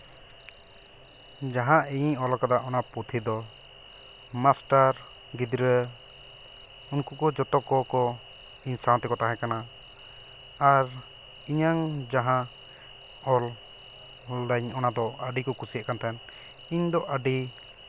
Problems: none marked